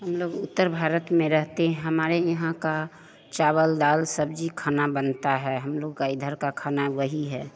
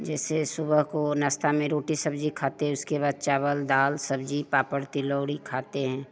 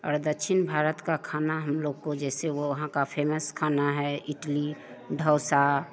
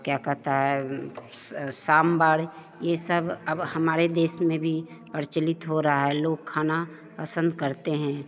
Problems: none marked